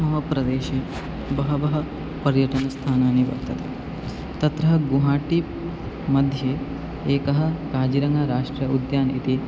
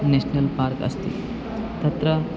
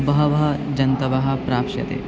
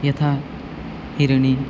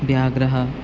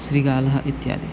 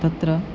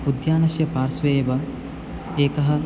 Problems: none marked